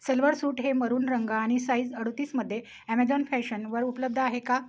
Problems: background sounds at intervals